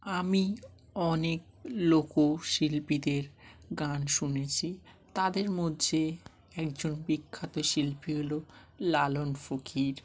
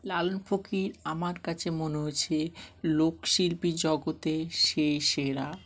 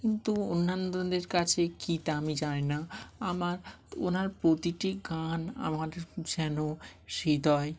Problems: none marked